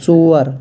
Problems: constant background noise